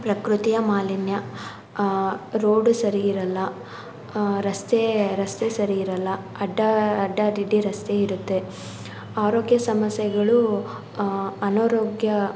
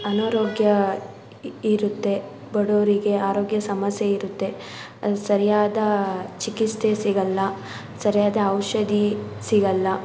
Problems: background sounds at intervals